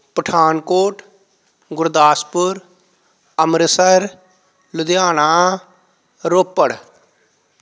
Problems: none marked